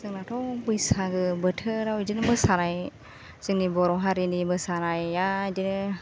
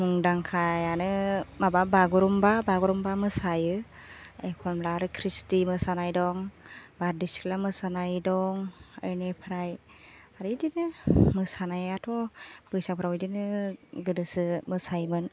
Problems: constant background noise